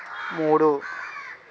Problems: background sounds at intervals